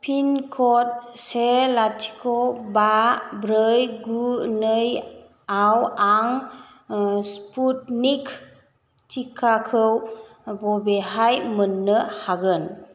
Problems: constant background noise